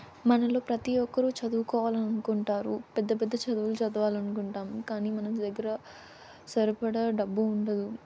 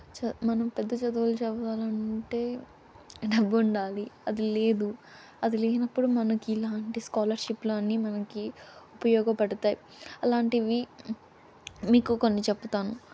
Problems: constant background noise